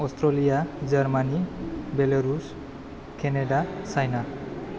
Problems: low volume